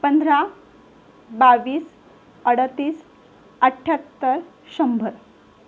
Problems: none marked